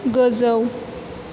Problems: constant background noise